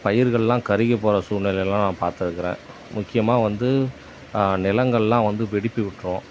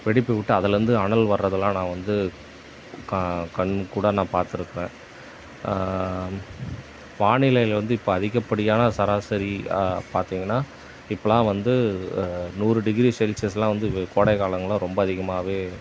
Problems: none marked